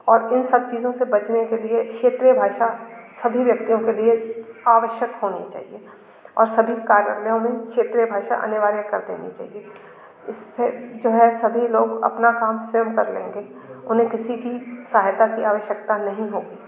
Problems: constant background noise, continuous background conversations